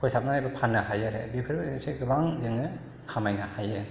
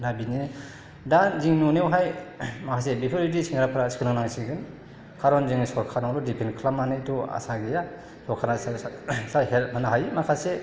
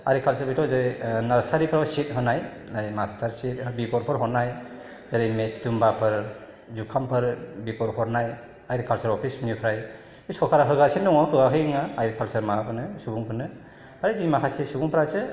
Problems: none marked